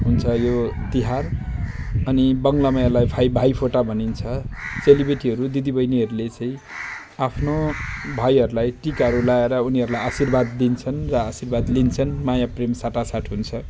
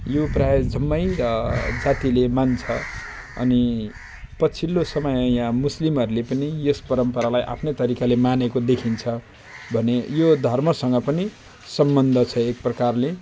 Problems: constant background noise